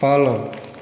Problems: none marked